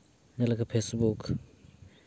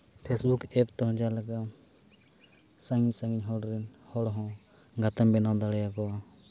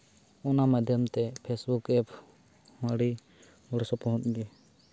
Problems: background sounds at intervals